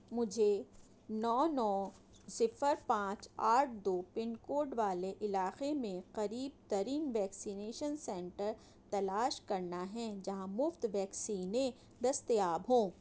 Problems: none marked